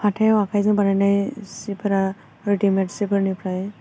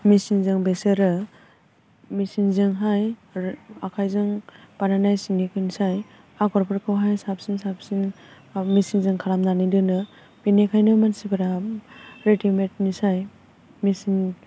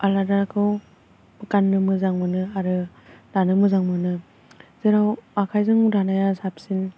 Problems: constant background noise